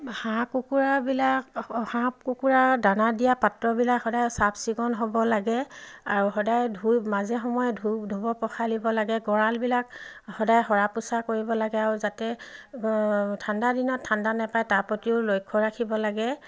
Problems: none marked